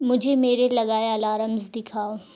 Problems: none marked